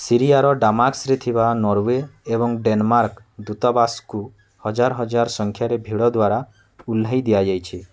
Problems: constant background noise